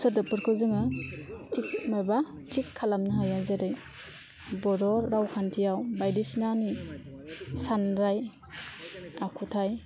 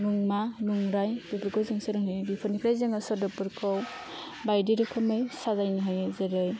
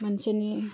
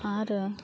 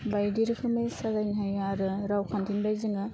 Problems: constant background noise